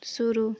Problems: none marked